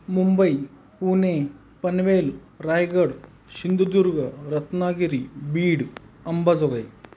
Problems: constant background noise